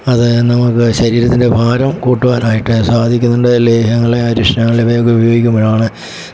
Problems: background sounds at intervals